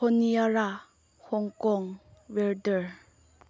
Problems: low volume